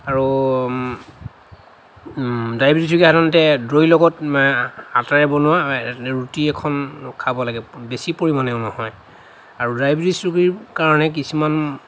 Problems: none marked